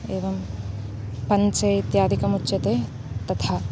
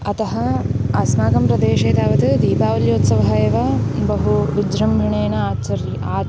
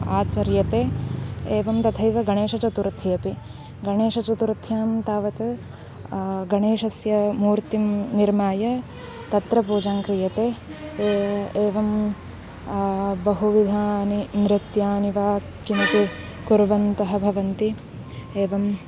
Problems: background sounds at intervals